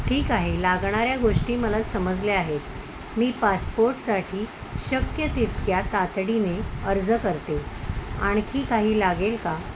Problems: constant background noise